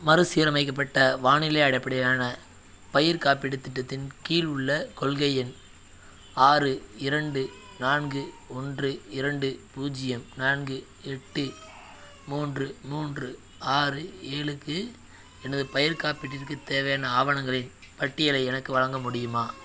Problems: background sounds at intervals